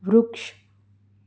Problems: none marked